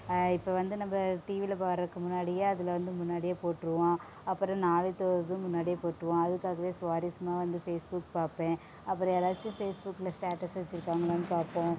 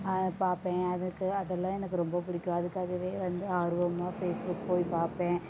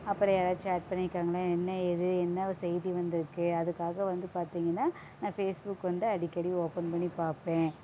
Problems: background sounds at intervals